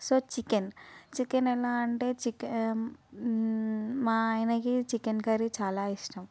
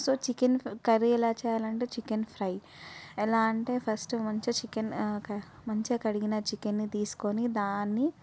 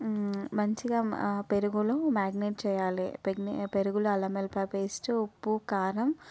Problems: background sounds at intervals